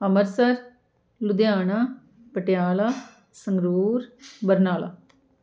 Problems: constant background noise